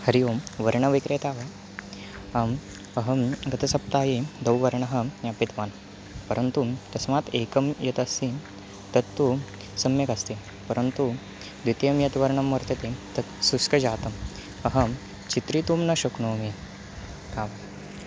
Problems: constant background noise